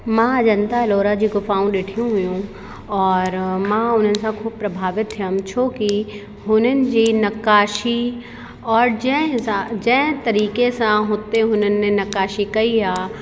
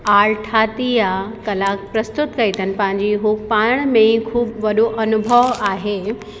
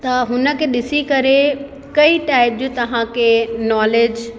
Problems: constant background noise, echo